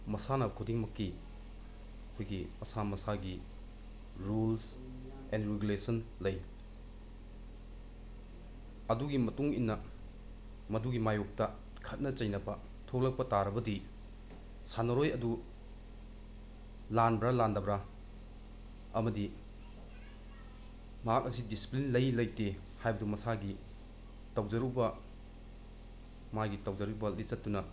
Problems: constant background noise